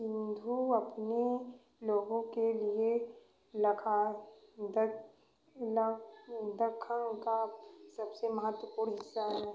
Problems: background sounds at intervals, echo